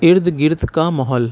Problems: constant background noise